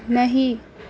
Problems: none marked